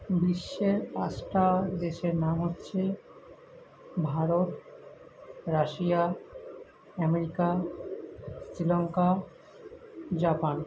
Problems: continuous background conversations